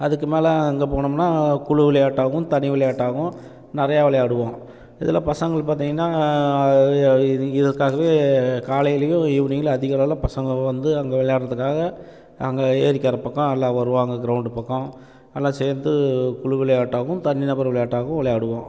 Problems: none marked